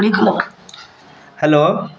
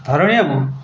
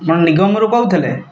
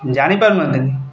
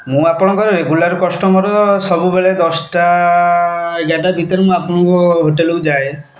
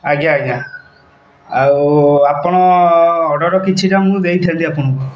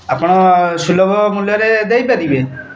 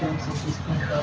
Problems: constant background noise, background conversations at intervals